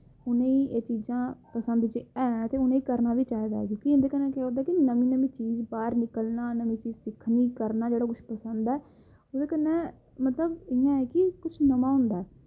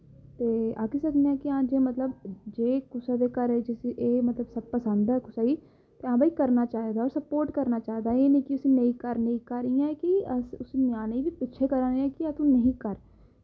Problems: none marked